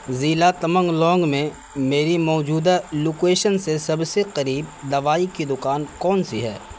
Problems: constant background noise